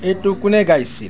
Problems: background sounds at intervals